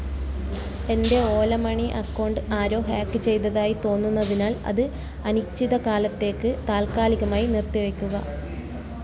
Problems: constant background noise, low volume